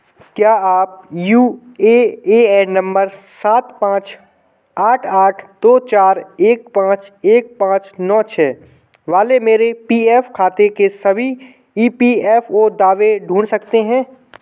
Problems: none marked